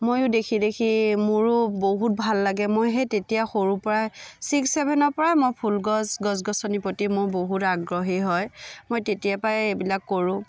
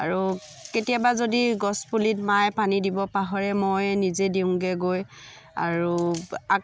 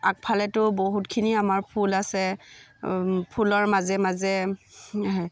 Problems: constant background noise, background conversations at intervals